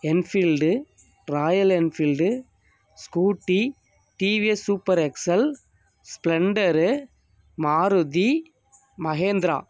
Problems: background sounds at intervals